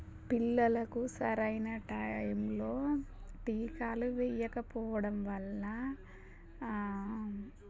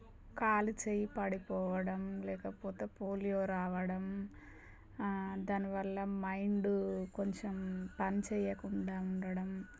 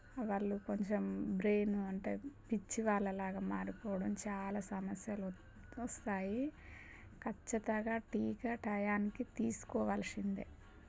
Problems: constant background noise